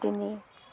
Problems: background sounds at intervals, background conversations at intervals